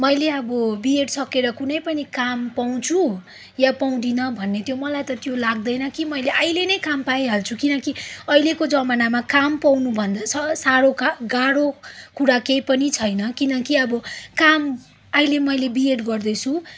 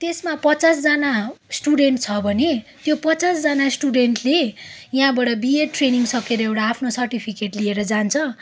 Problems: background sounds at intervals